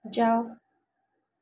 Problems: none marked